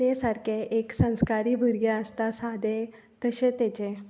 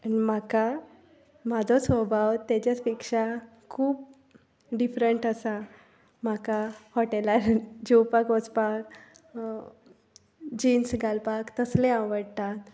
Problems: none marked